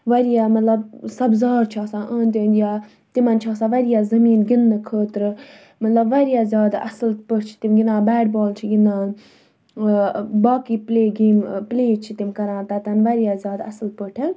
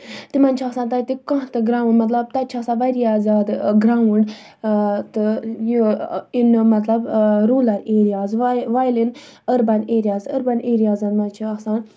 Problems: none marked